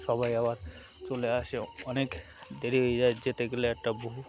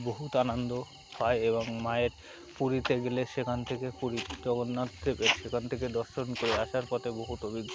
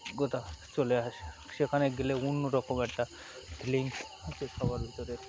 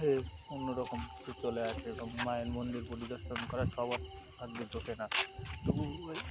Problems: constant background noise, continuous background conversations